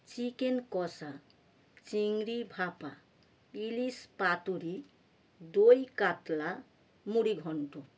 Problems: background sounds at intervals